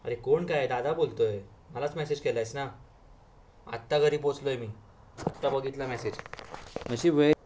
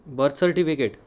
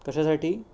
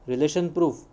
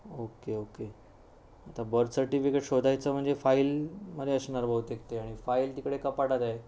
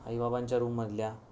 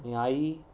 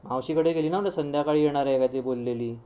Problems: background sounds at intervals